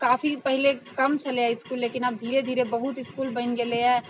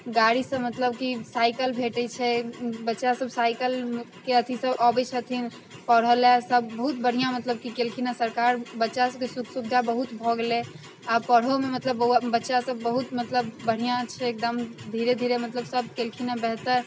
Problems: constant background noise